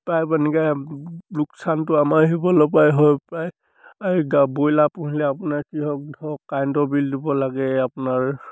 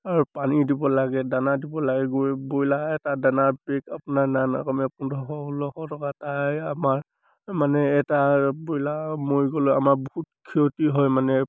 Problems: none marked